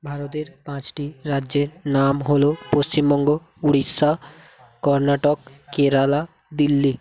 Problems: background sounds at intervals, continuous background conversations